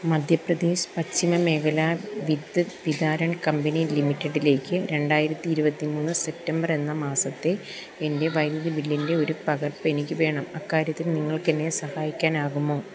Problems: constant background noise